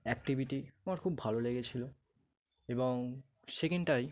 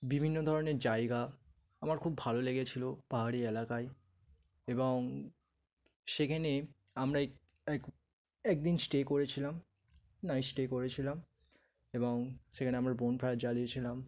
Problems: none marked